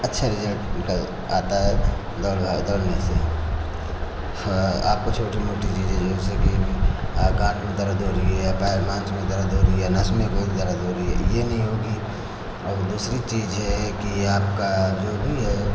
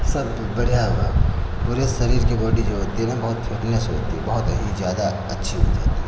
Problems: constant background noise